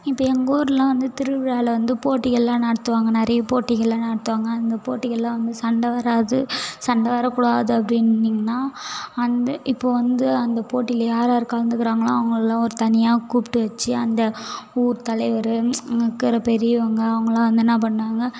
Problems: background sounds at intervals